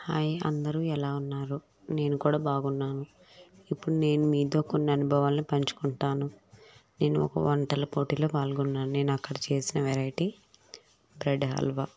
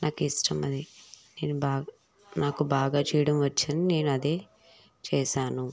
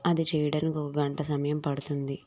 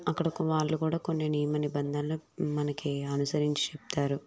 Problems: none marked